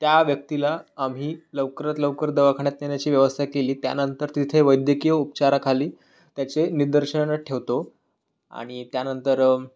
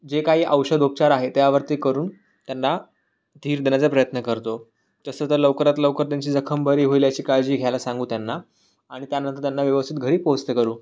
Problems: none marked